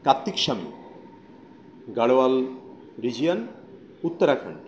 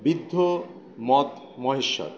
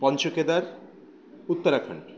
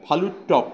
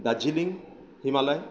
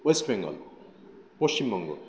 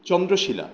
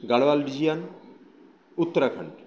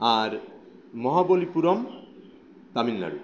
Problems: constant background noise